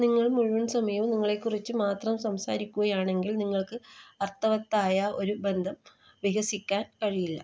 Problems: none marked